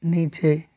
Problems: constant background noise